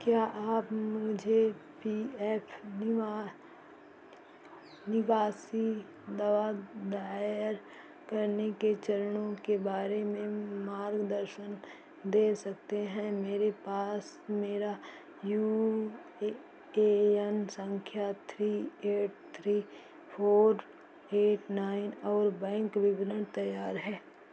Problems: constant background noise, echo